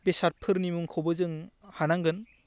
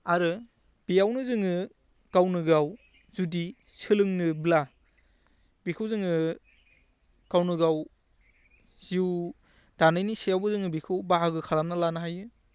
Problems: constant background noise